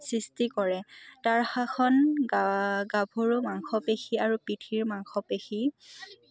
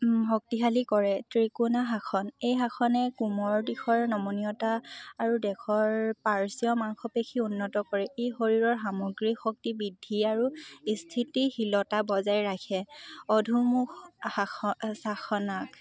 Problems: none marked